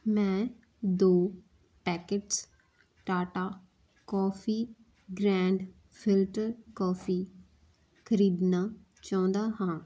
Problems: none marked